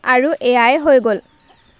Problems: constant background noise